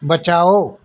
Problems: none marked